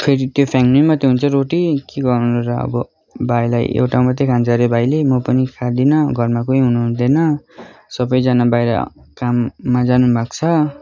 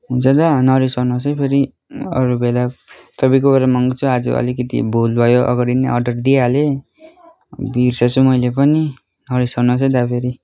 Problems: none marked